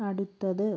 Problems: low volume